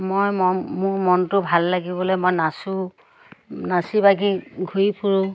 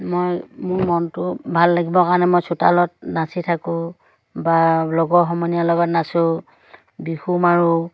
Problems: none marked